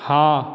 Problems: constant background noise